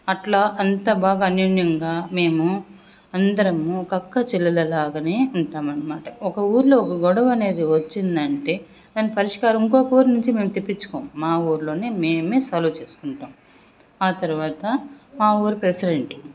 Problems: none marked